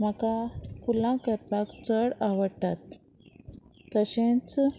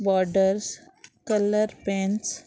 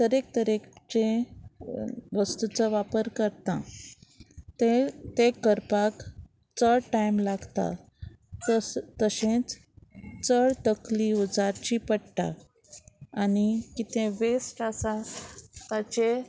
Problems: none marked